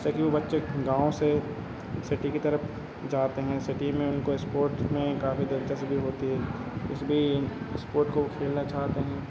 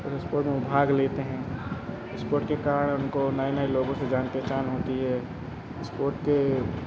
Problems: none marked